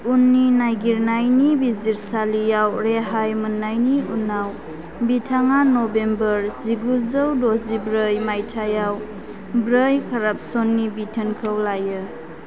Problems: constant background noise